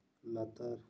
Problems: echo, low volume